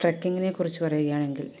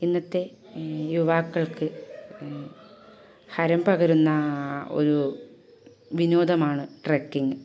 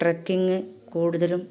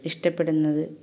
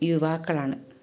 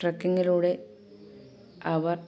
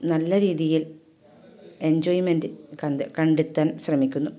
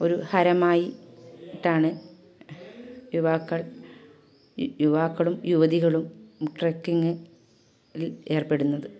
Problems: background sounds at intervals, low volume